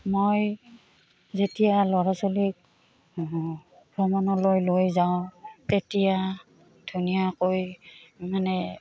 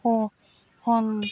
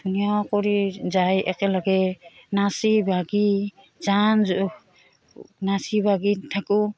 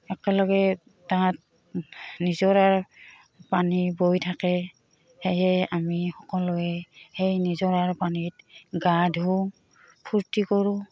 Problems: background sounds at intervals